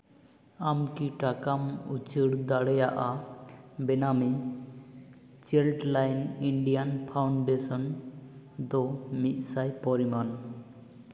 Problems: echo